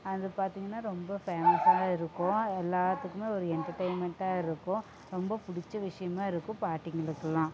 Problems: constant background noise, low volume